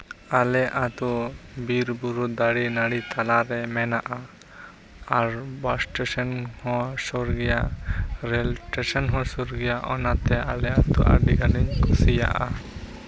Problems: constant background noise